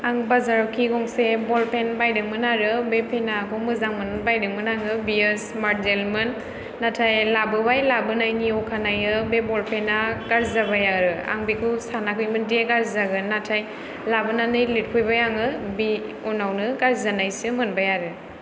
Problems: background sounds at intervals